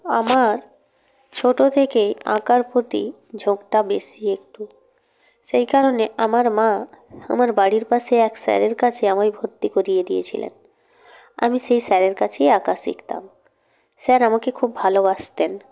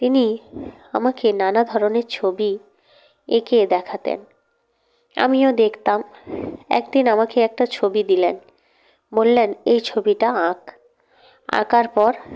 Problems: none marked